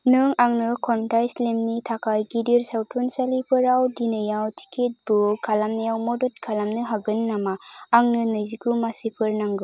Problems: constant background noise